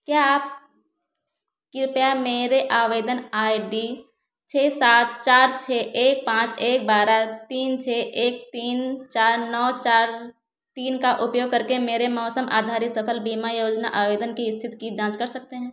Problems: none marked